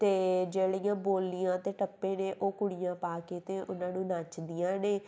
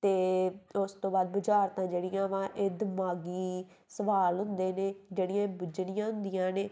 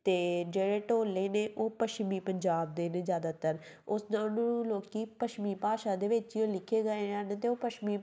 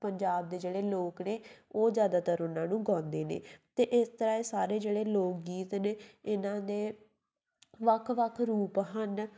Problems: none marked